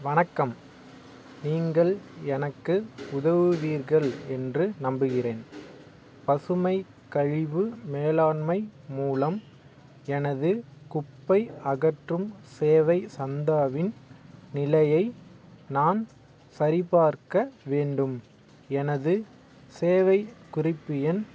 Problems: none marked